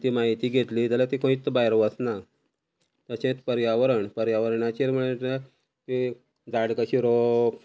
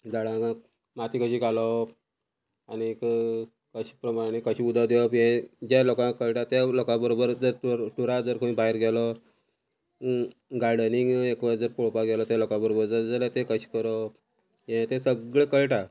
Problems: constant background noise